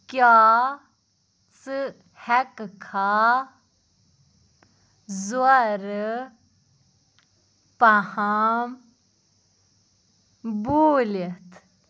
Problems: background sounds at intervals